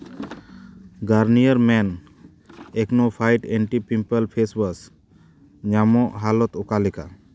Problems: none marked